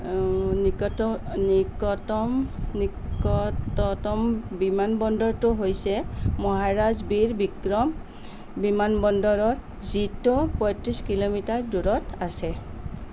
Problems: constant background noise